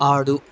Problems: constant background noise